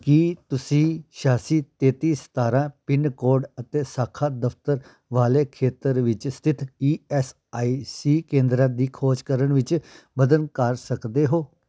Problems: background sounds at intervals